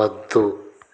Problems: constant background noise